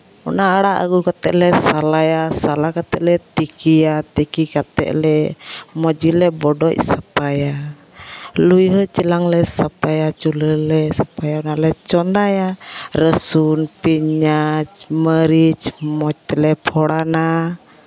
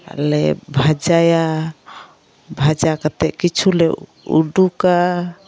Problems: constant background noise